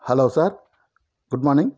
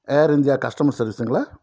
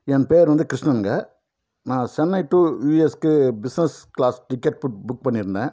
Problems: none marked